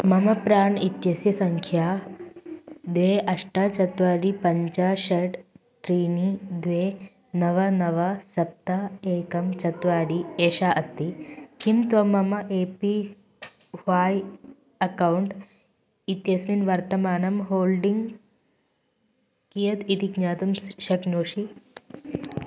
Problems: constant background noise